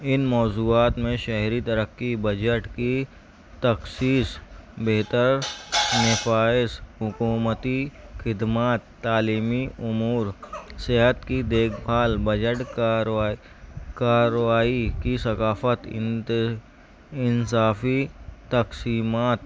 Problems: background sounds at intervals, background conversations at intervals